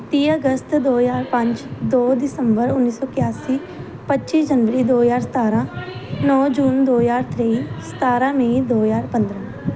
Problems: background sounds at intervals, background conversations at intervals